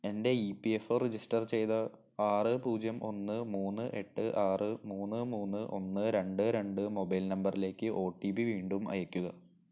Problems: low volume